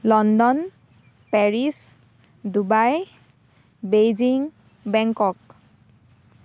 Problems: constant background noise